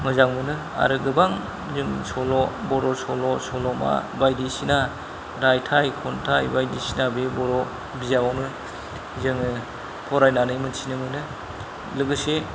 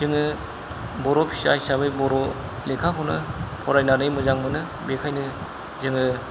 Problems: low volume